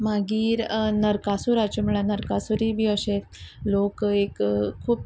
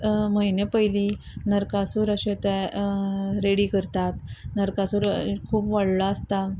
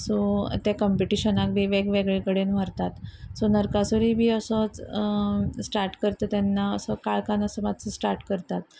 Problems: background sounds at intervals